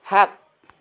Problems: none marked